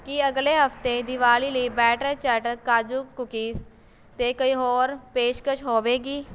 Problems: none marked